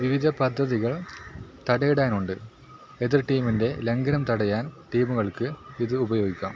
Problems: constant background noise